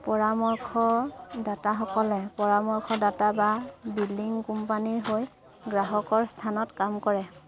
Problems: none marked